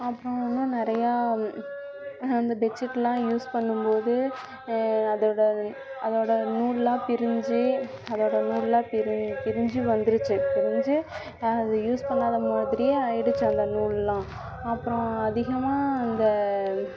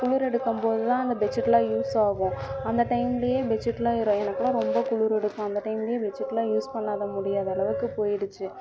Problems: background sounds at intervals, continuous background conversations